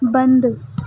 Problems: background sounds at intervals